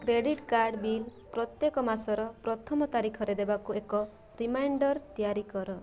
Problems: constant background noise